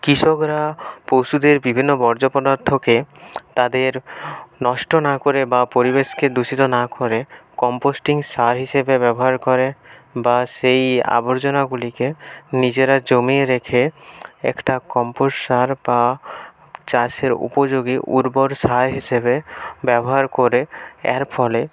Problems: background sounds at intervals, continuous background conversations